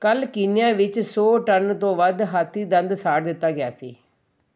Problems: none marked